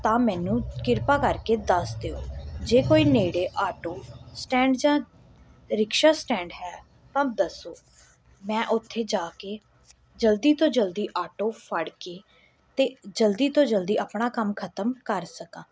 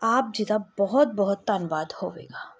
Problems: none marked